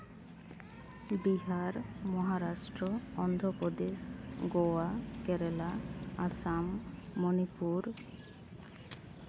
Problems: background sounds at intervals